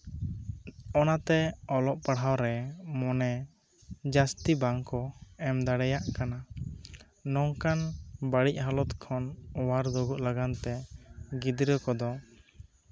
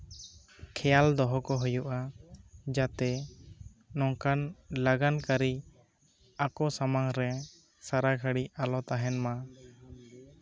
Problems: none marked